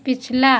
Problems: none marked